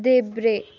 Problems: continuous background conversations